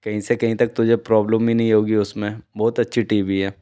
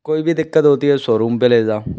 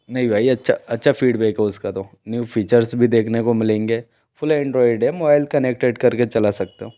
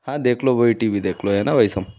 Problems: background sounds at intervals